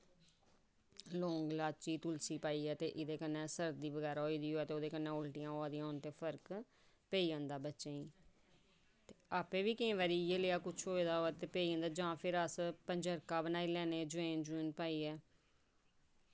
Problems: low volume